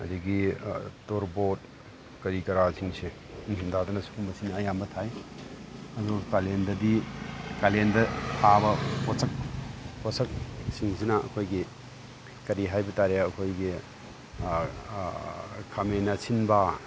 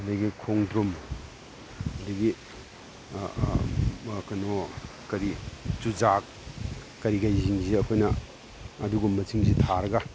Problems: background sounds at intervals